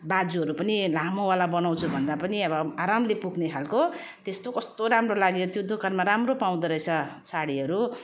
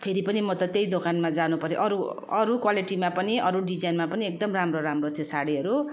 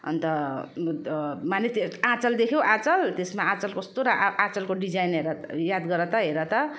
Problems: constant background noise